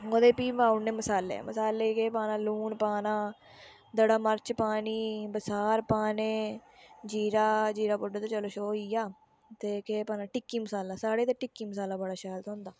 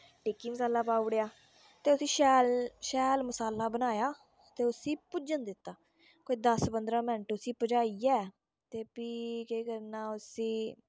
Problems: background sounds at intervals